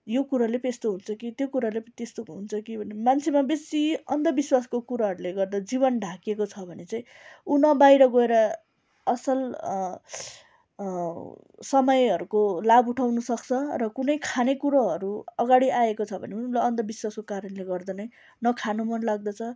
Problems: none marked